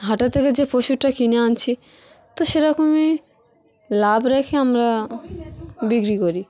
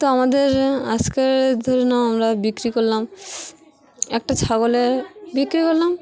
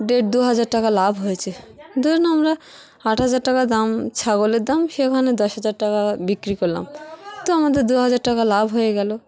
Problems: constant background noise, continuous background conversations